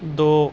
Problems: constant background noise